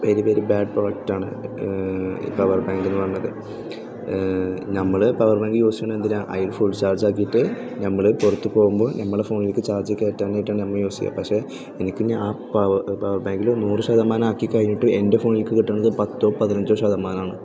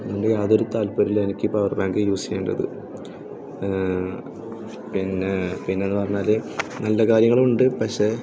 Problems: background sounds at intervals